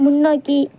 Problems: constant background noise